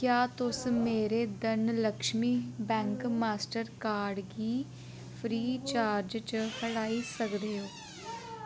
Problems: background sounds at intervals